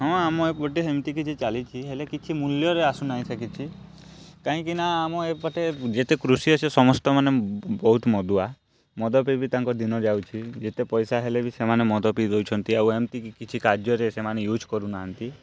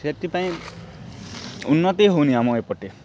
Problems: none marked